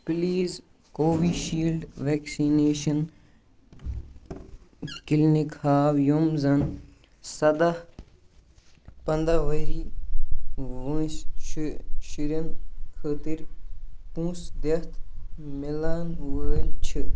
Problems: constant background noise